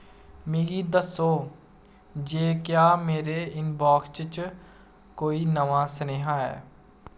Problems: background sounds at intervals